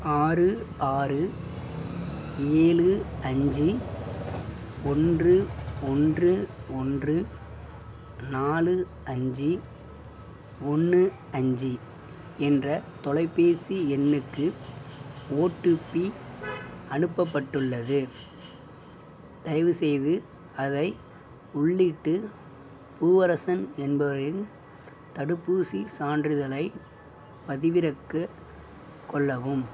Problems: background sounds at intervals